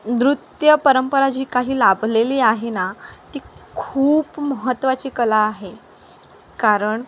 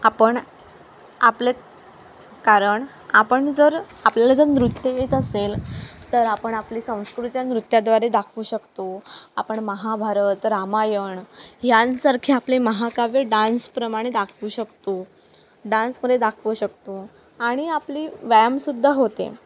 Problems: none marked